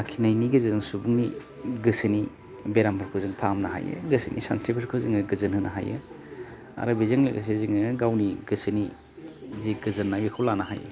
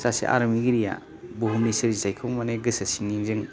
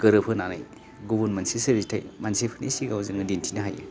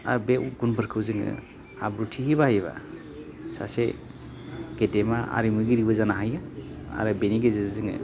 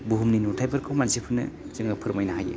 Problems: none marked